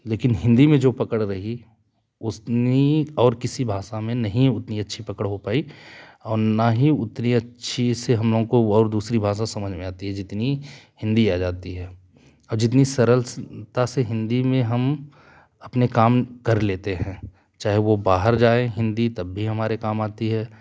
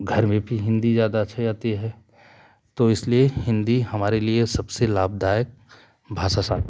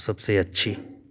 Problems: none marked